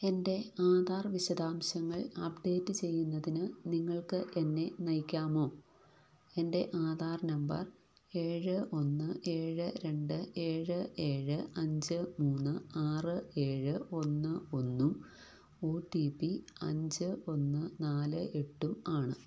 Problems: low volume